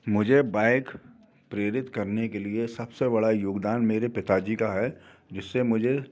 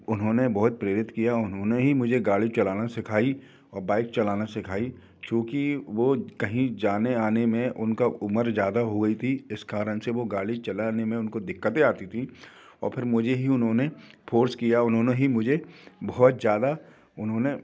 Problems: none marked